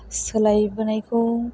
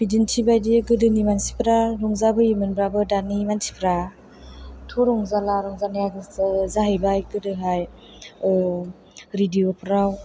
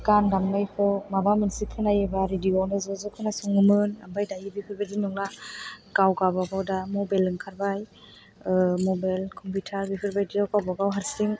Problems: background sounds at intervals